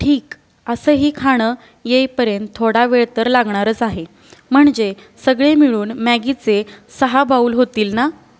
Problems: none marked